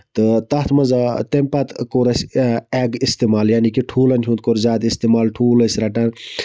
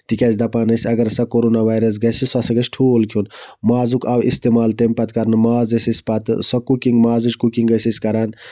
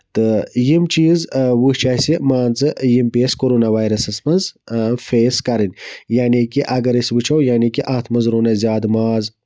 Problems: background sounds at intervals